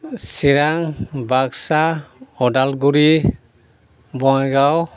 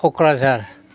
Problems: constant background noise